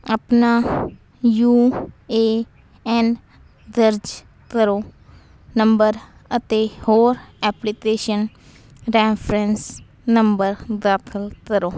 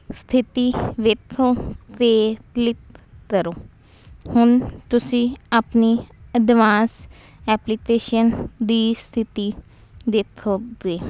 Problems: constant background noise